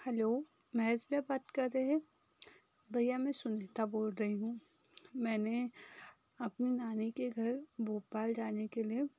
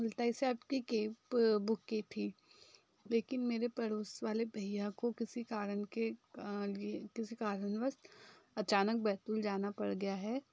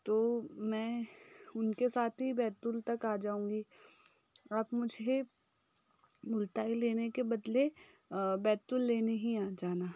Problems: background sounds at intervals